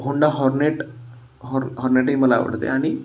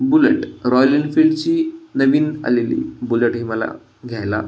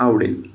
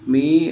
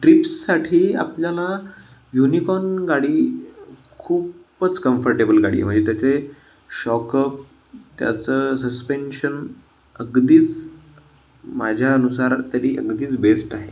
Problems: constant background noise